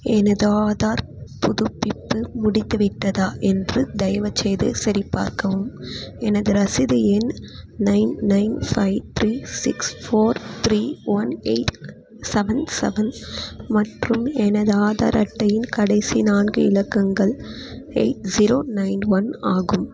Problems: constant background noise